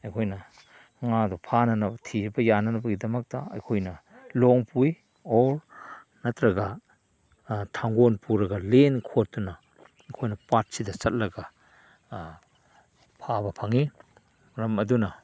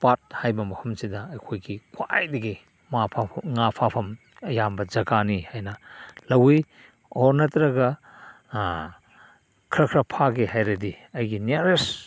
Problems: none marked